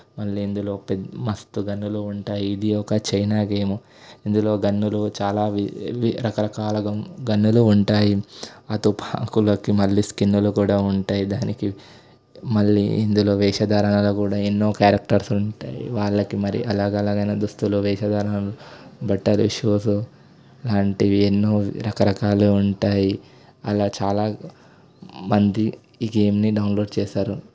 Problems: none marked